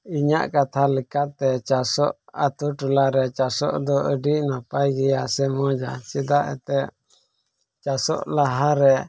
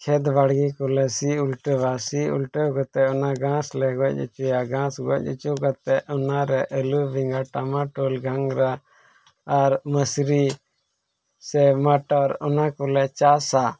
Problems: background sounds at intervals